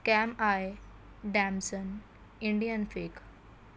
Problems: constant background noise